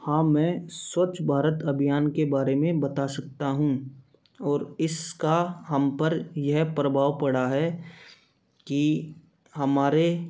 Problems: background sounds at intervals